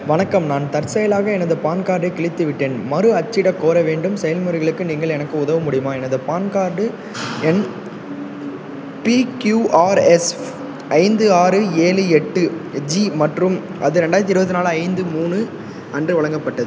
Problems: constant background noise